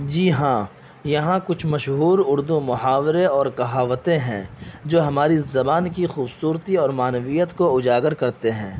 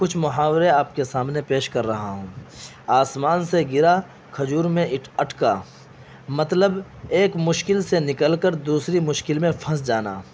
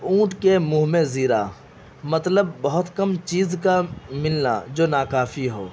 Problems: constant background noise